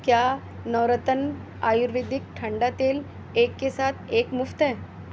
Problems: constant background noise